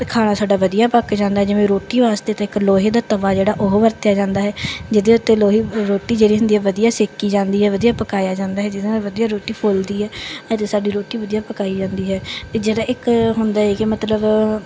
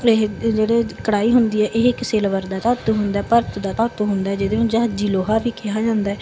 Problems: background sounds at intervals, background conversations at intervals